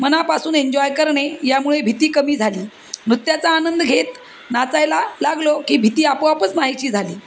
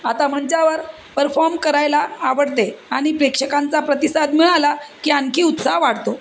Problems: constant background noise